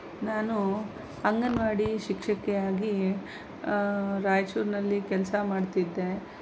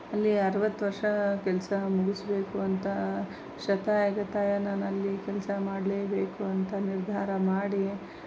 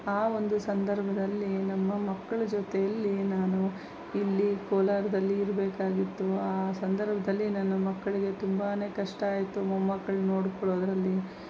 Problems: none marked